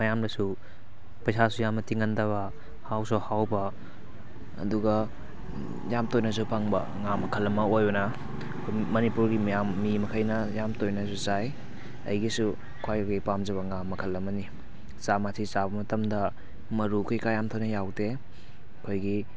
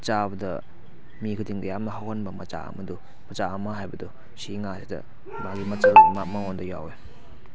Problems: background sounds at intervals